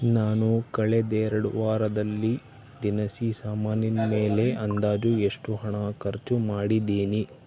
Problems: background sounds at intervals